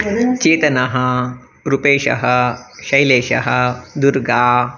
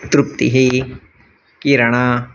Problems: none marked